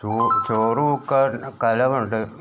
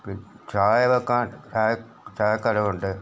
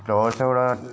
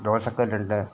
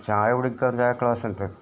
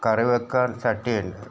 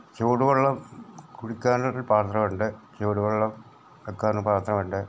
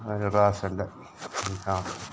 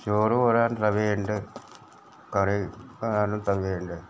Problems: background sounds at intervals